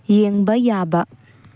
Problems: low volume